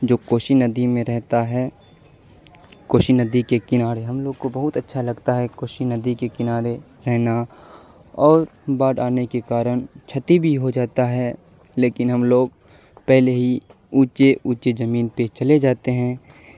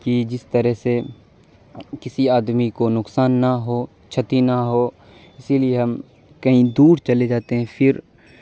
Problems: constant background noise